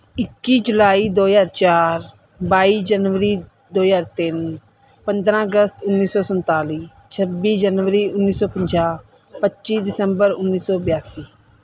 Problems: background sounds at intervals